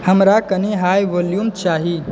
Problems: background conversations at intervals